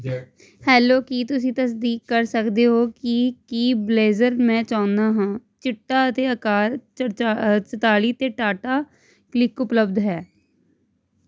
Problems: constant background noise